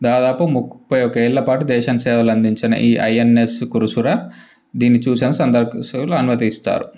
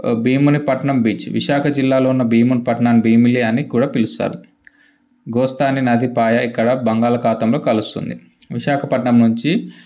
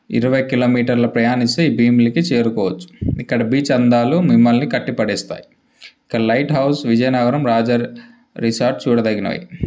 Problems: background sounds at intervals